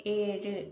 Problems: low volume